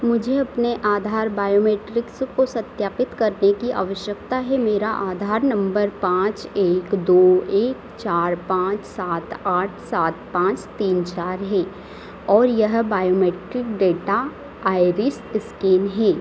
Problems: constant background noise